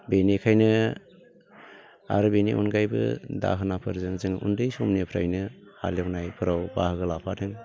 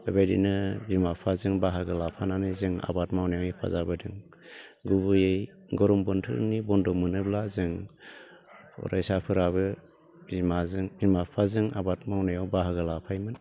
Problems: none marked